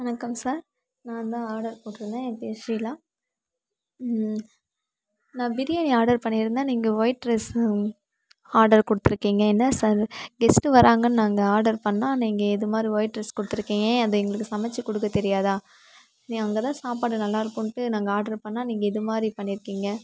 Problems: background sounds at intervals